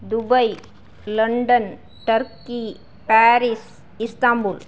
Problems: none marked